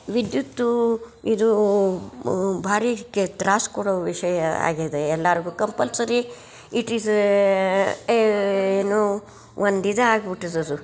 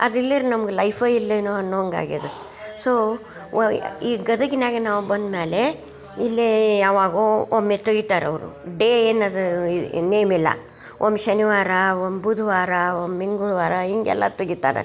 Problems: none marked